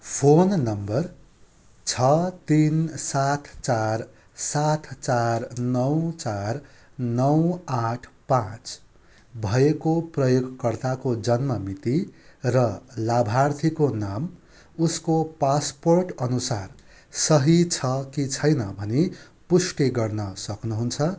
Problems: constant background noise